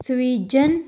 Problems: none marked